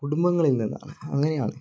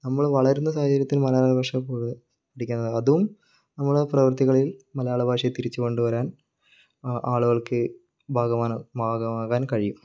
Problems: low volume